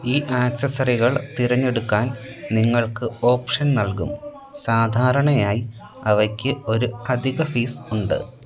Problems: continuous background conversations, low volume